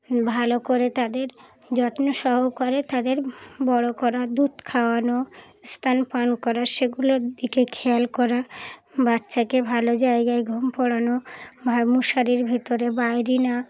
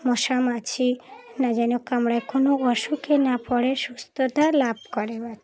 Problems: continuous background conversations